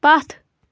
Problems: none marked